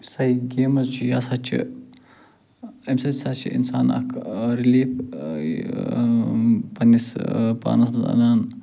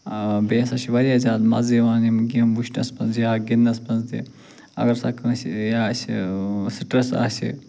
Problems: none marked